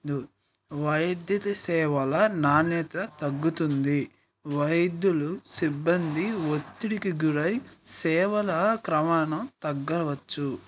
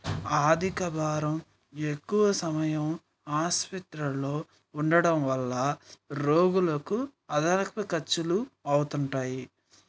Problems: background sounds at intervals